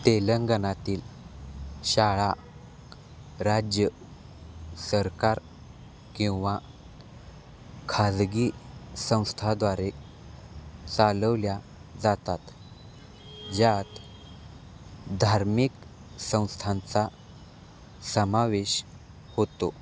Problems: none marked